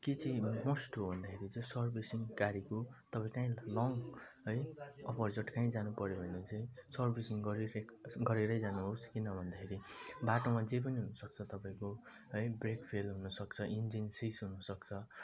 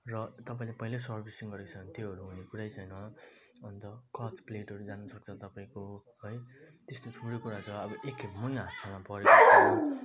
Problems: constant background noise, low volume